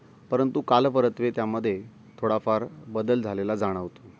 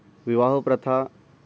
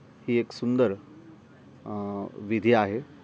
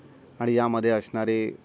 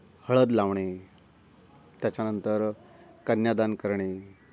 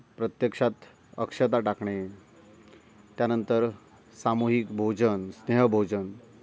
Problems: constant background noise